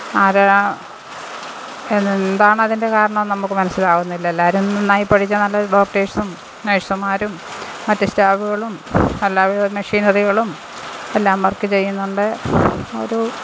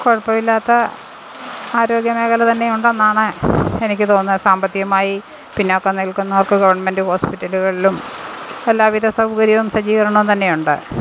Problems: constant background noise, background conversations at intervals